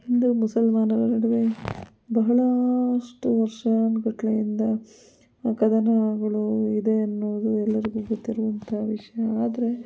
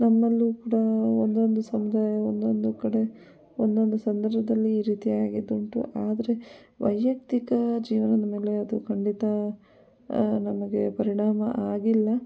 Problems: background sounds at intervals